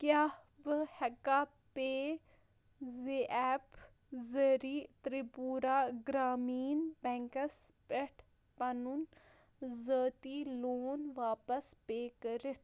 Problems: low volume